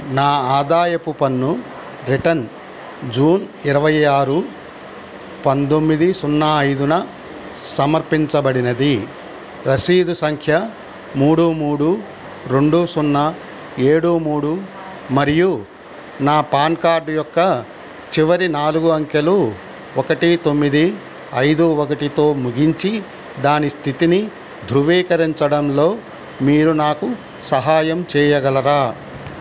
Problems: constant background noise